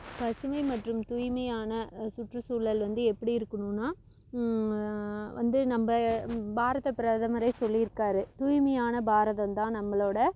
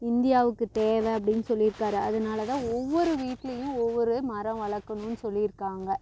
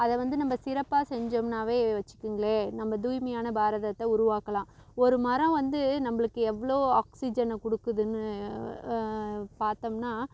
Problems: constant background noise